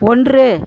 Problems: constant background noise